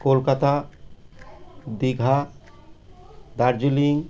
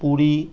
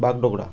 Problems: constant background noise